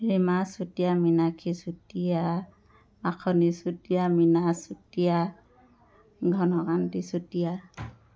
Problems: background sounds at intervals